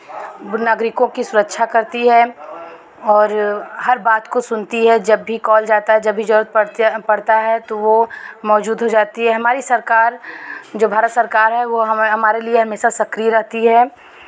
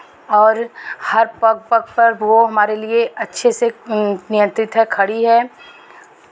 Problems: none marked